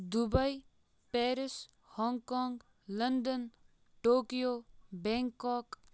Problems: background sounds at intervals